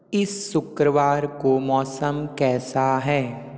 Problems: none marked